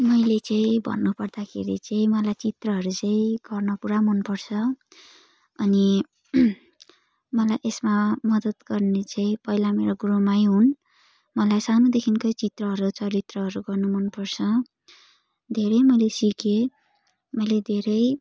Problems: none marked